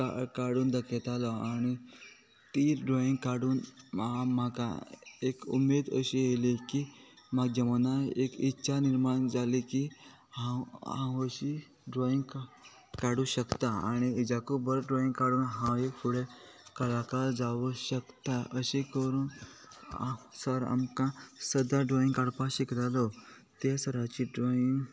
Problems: constant background noise